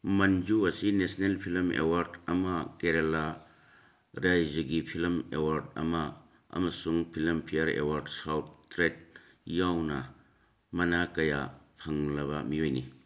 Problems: none marked